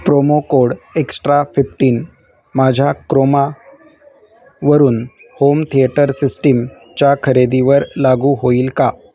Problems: constant background noise, background conversations at intervals